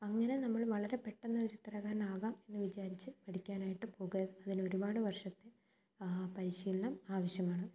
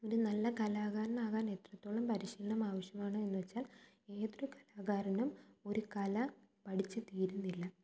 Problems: low volume